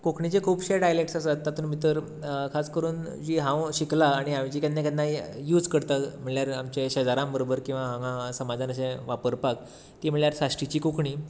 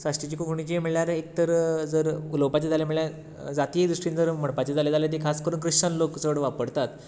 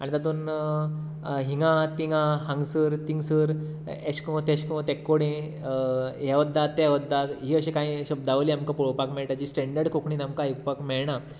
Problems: background sounds at intervals